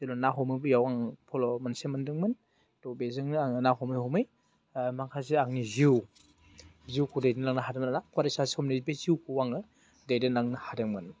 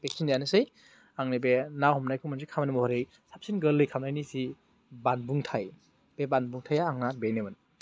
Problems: none marked